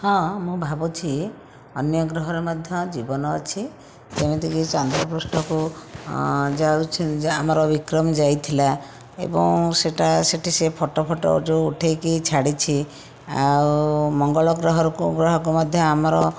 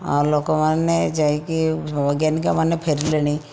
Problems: background sounds at intervals